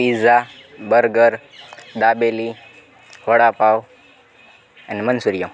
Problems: constant background noise